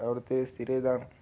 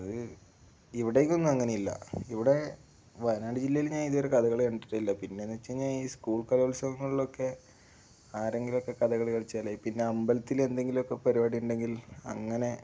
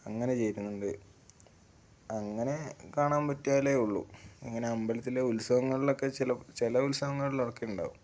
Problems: none marked